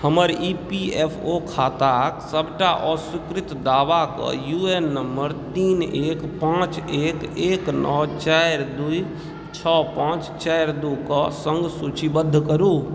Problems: background conversations at intervals